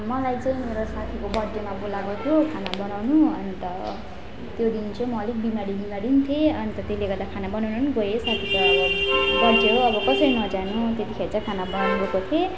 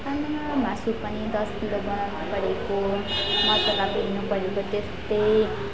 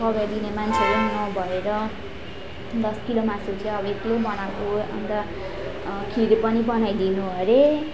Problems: constant background noise, continuous background conversations